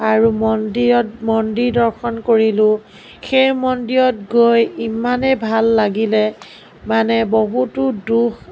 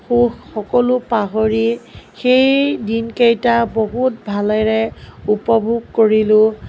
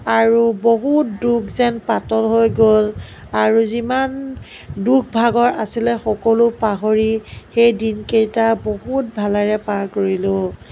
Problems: none marked